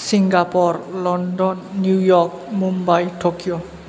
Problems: none marked